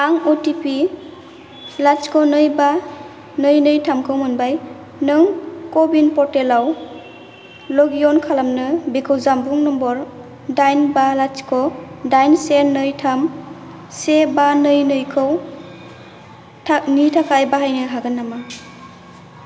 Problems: none marked